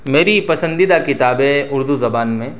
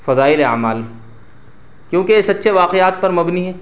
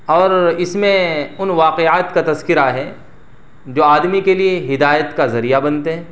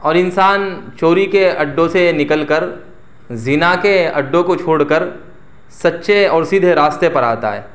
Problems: none marked